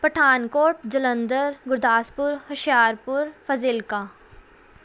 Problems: background sounds at intervals